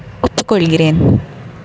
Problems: background sounds at intervals